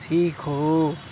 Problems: constant background noise, low volume